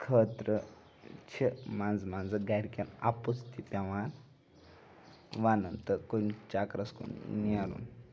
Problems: background sounds at intervals, continuous background conversations